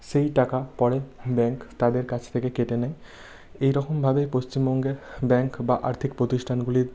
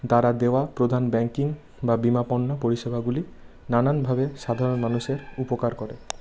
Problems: background sounds at intervals